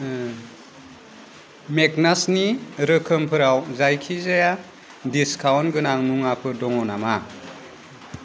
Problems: constant background noise